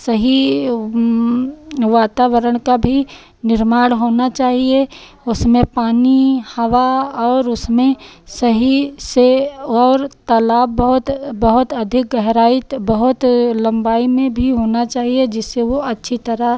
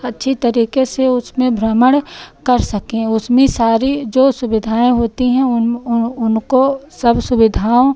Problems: none marked